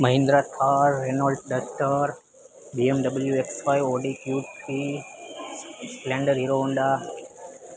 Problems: constant background noise